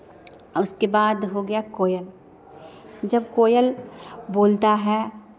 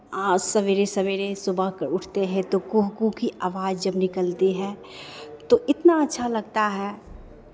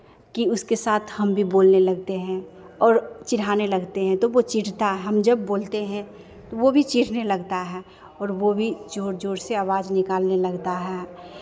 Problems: constant background noise, echo